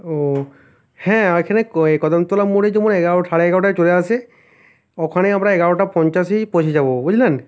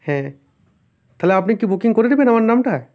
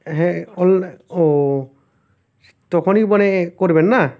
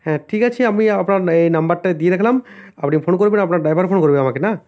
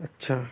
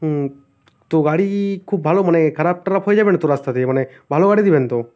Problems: none marked